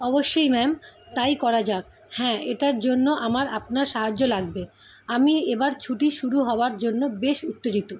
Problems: constant background noise